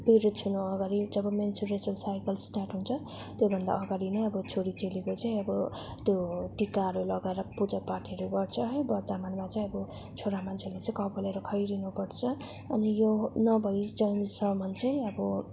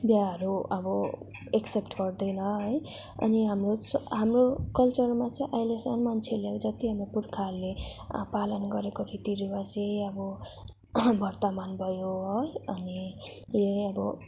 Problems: none marked